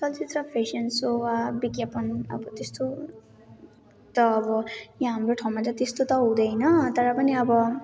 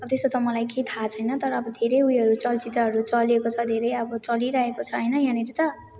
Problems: none marked